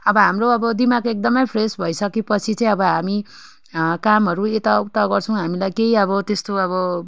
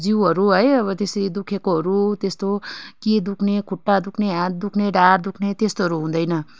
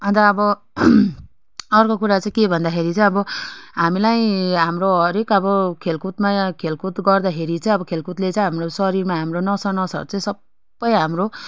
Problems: none marked